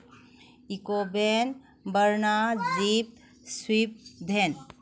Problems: none marked